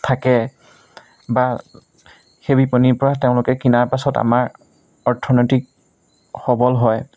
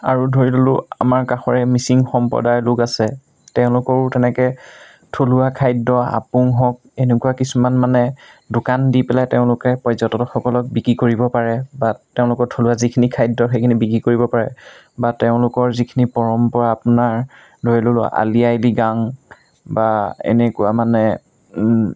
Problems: none marked